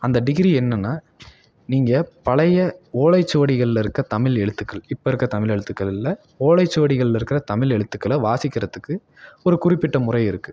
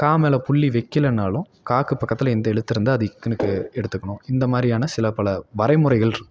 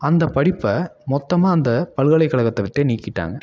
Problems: none marked